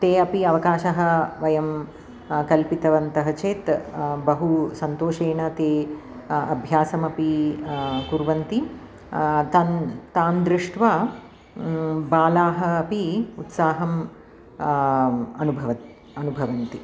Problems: none marked